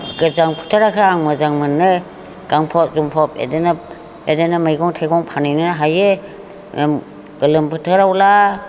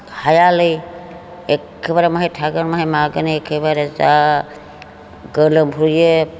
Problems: constant background noise